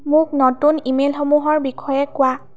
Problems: none marked